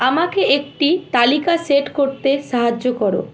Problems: none marked